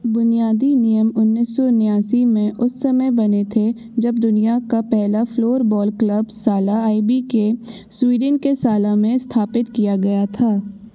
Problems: constant background noise